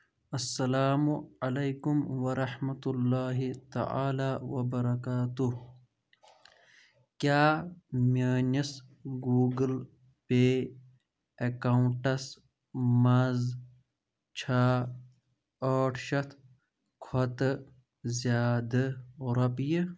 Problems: background conversations at intervals